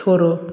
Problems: none marked